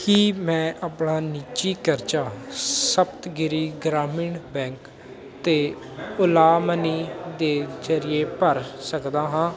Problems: none marked